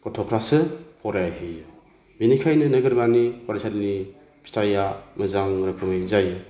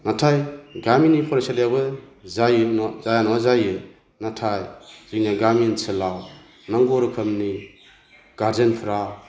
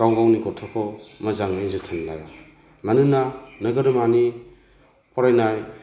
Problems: none marked